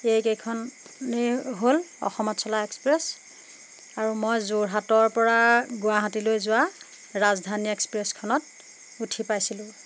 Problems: constant background noise